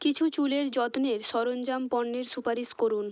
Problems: constant background noise